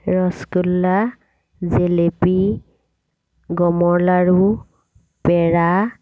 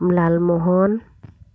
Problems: none marked